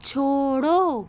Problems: constant background noise